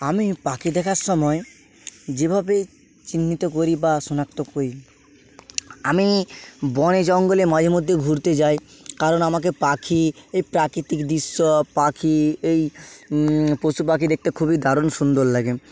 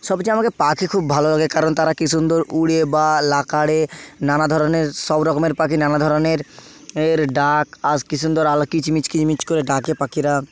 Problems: none marked